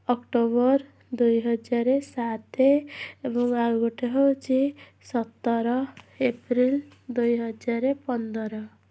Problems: background sounds at intervals